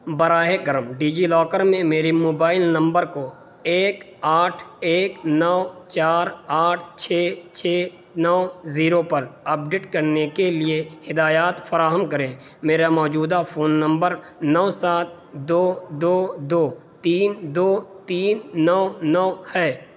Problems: constant background noise